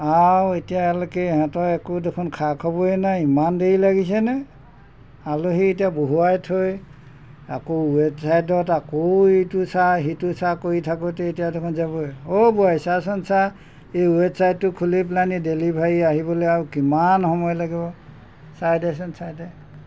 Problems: none marked